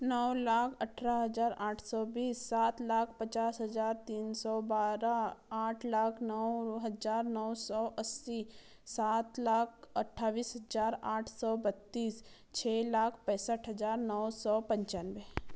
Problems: low volume